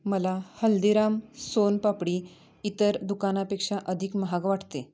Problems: background sounds at intervals, background conversations at intervals